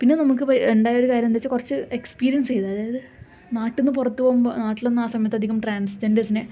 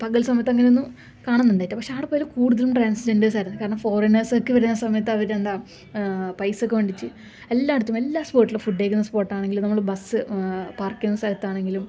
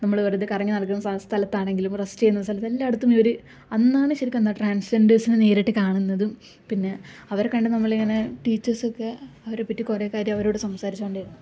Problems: none marked